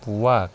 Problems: constant background noise